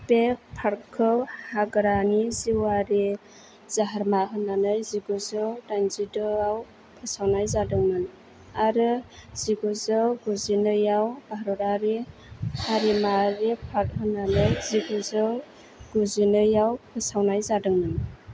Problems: low volume